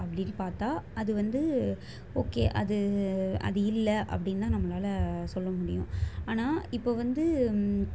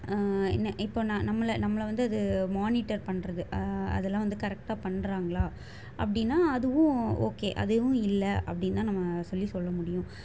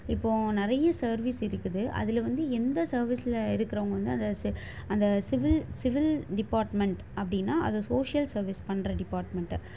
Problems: constant background noise